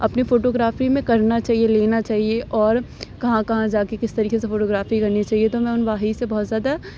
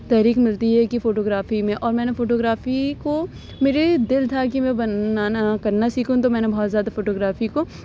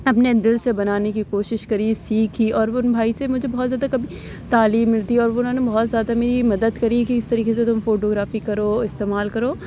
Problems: none marked